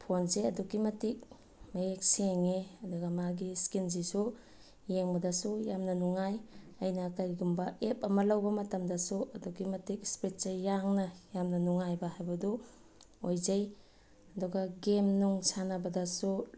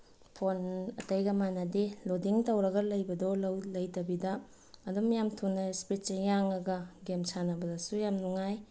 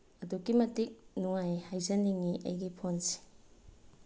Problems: none marked